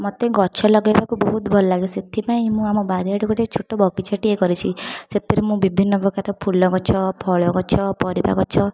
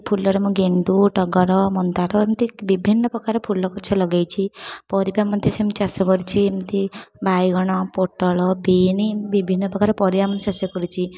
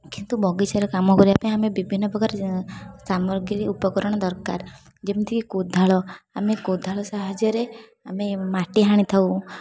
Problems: continuous background conversations